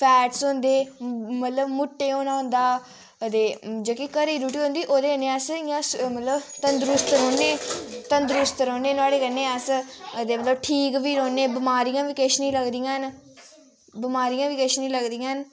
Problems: none marked